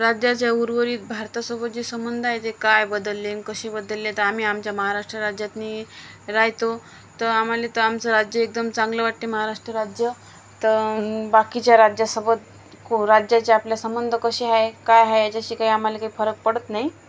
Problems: background sounds at intervals